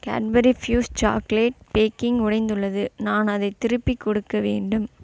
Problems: none marked